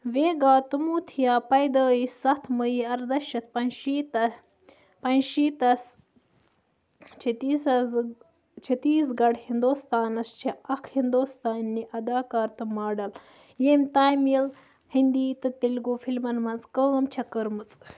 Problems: background sounds at intervals